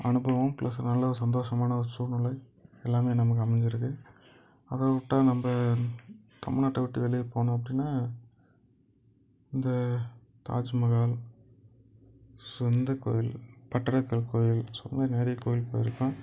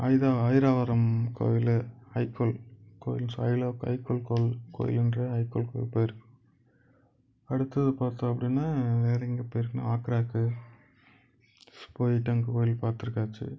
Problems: none marked